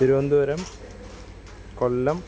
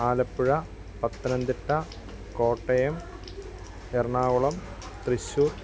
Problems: constant background noise